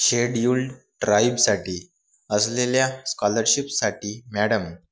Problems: background sounds at intervals